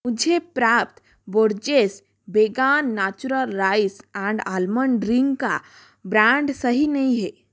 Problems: none marked